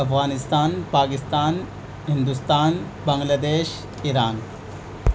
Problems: constant background noise